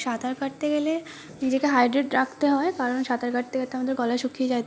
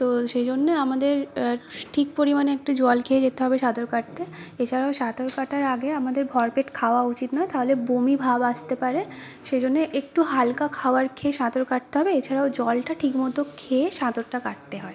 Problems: background sounds at intervals